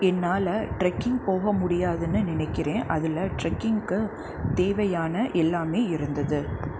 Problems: none marked